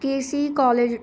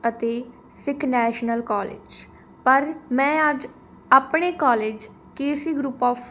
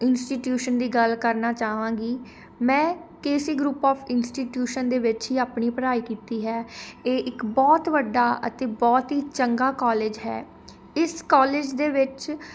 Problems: constant background noise